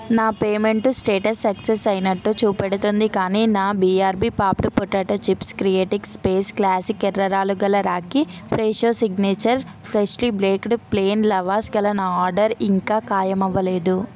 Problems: constant background noise, continuous background conversations